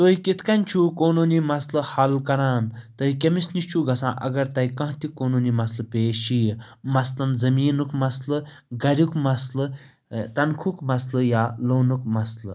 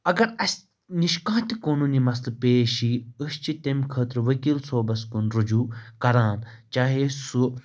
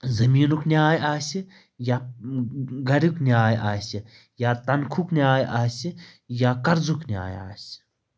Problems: none marked